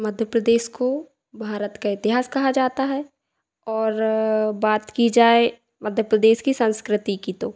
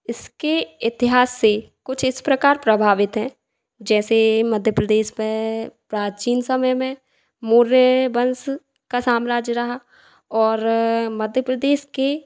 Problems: none marked